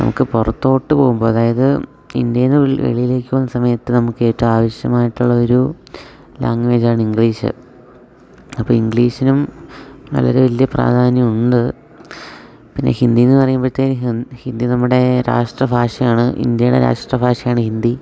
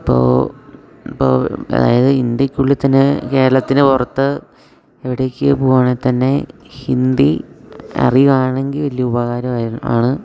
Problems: none marked